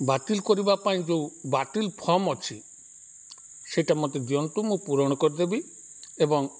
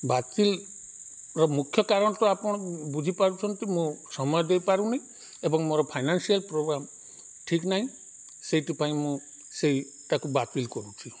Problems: background sounds at intervals